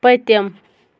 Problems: constant background noise